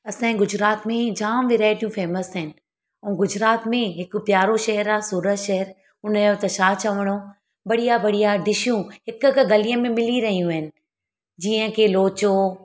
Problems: background conversations at intervals